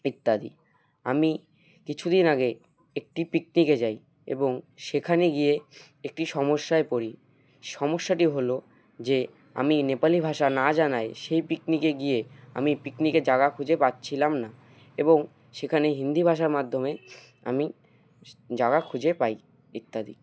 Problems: background sounds at intervals